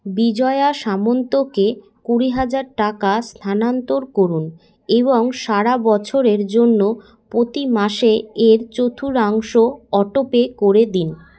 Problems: none marked